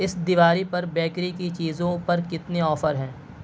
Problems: constant background noise